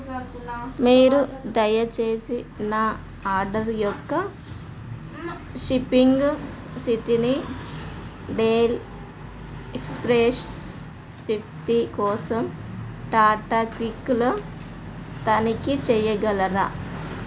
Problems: background sounds at intervals, background conversations at intervals